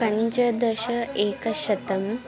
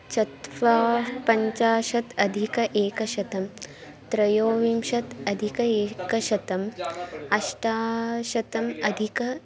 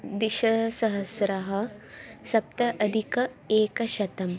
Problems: continuous background conversations